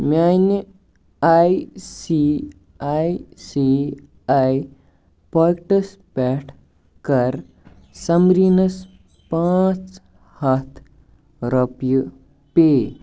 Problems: background sounds at intervals